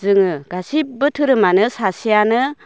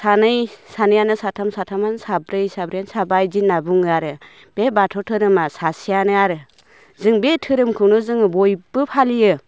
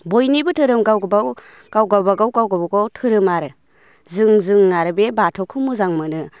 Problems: none marked